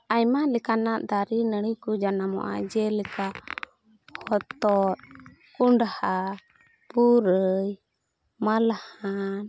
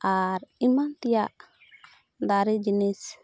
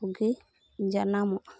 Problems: none marked